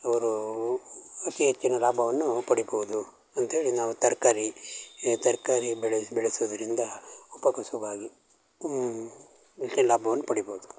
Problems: none marked